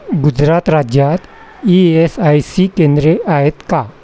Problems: constant background noise, continuous background conversations